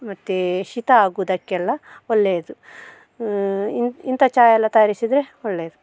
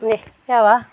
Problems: background sounds at intervals